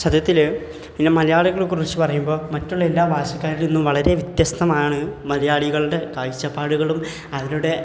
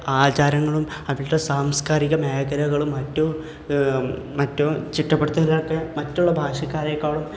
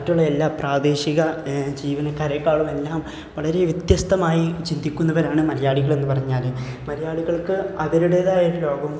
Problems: none marked